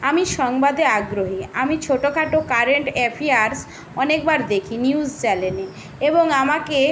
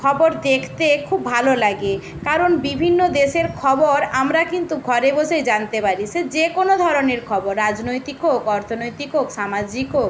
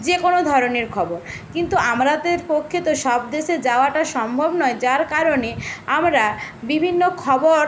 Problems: constant background noise